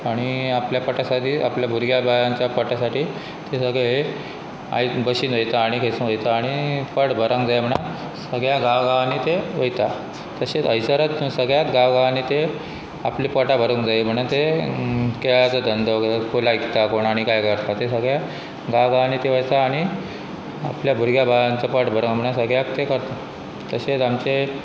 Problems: constant background noise